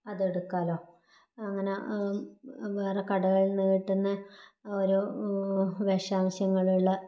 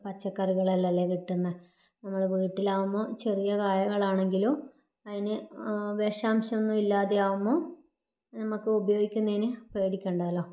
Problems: low volume